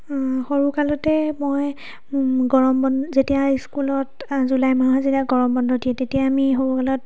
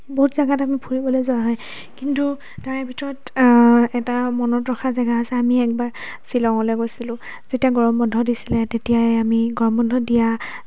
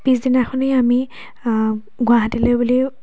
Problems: background conversations at intervals